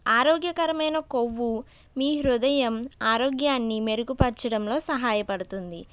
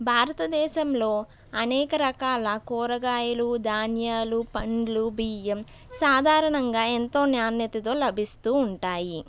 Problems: none marked